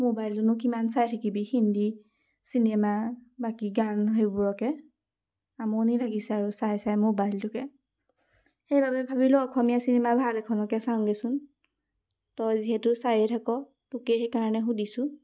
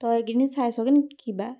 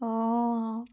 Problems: constant background noise